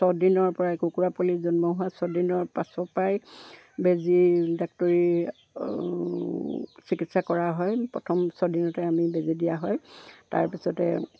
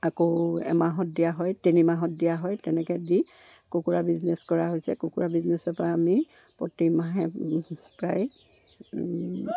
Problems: none marked